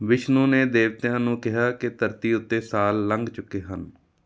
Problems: none marked